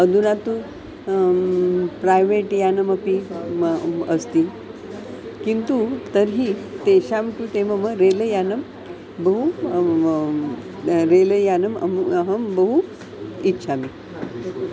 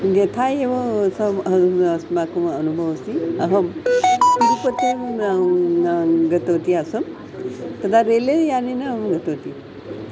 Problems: constant background noise